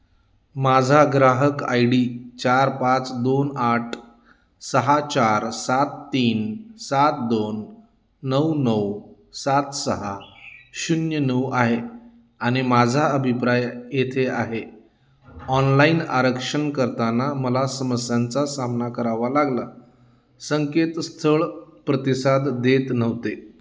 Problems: none marked